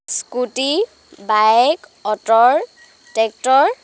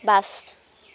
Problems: none marked